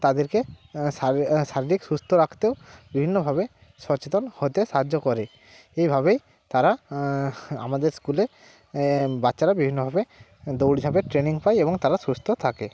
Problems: constant background noise, background conversations at intervals